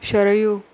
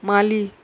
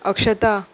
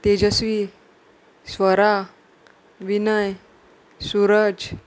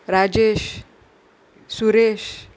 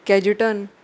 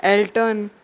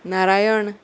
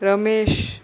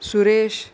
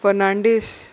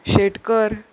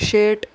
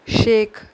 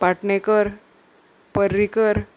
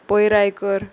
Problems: none marked